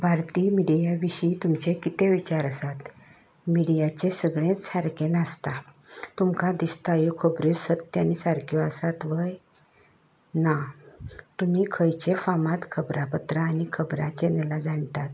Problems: constant background noise